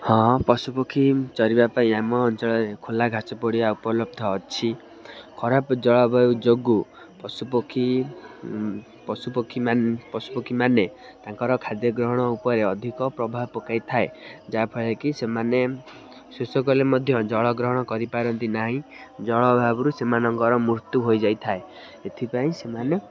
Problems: constant background noise